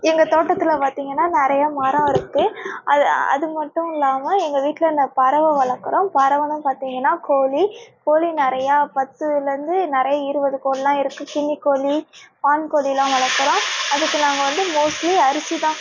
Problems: none marked